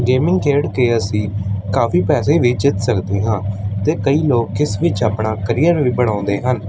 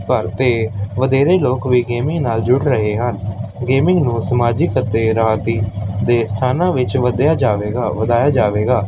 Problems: constant background noise